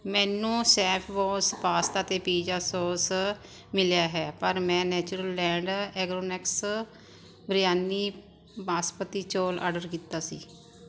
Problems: constant background noise